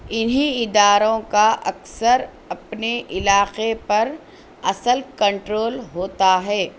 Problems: none marked